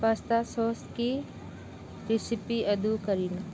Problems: low volume